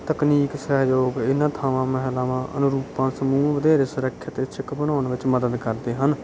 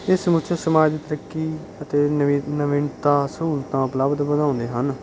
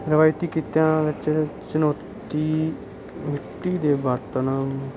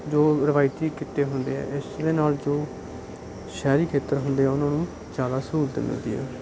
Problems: none marked